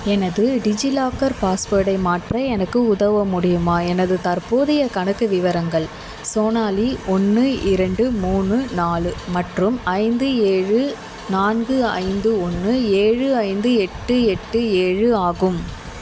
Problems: constant background noise